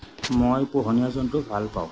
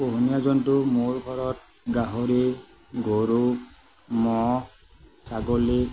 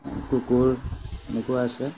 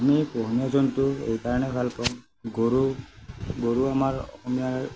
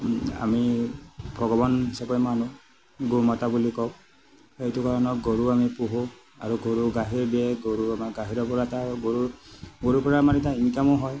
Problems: none marked